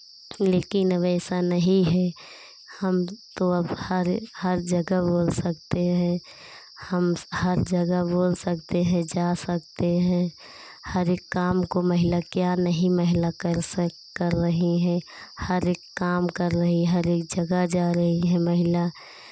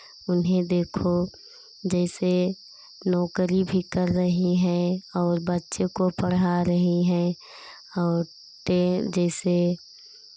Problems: constant background noise